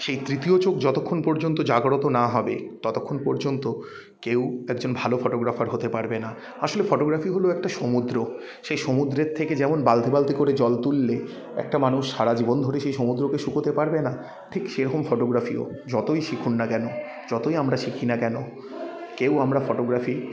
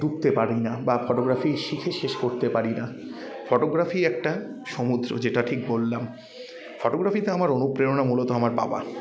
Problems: none marked